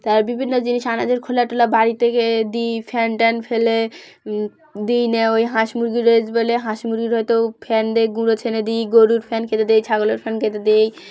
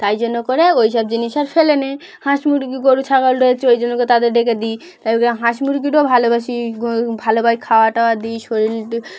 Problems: none marked